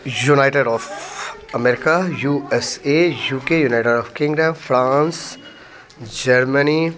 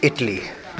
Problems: background conversations at intervals